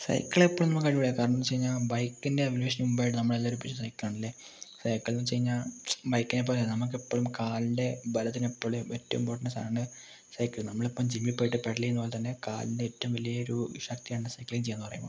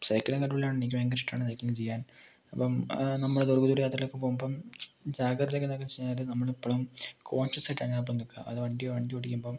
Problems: low volume